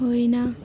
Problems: constant background noise